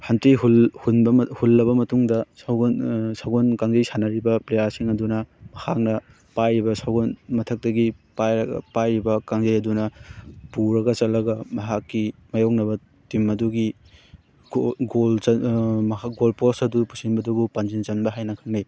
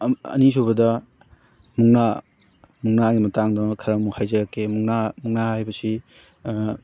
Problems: constant background noise, background conversations at intervals